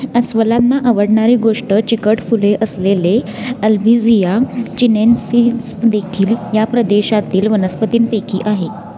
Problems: constant background noise, continuous background conversations